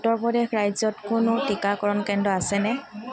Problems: background sounds at intervals